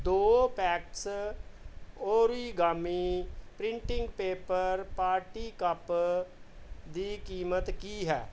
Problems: background sounds at intervals